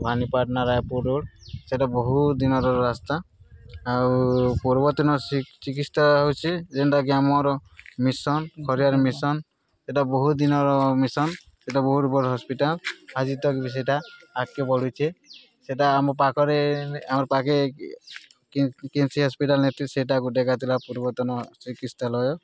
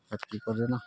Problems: constant background noise, background conversations at intervals